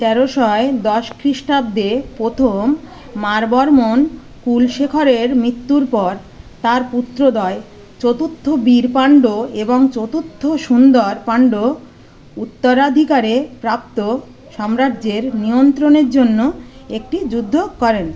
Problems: constant background noise, background conversations at intervals